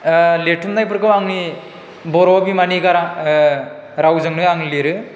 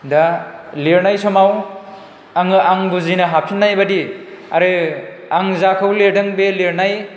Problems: none marked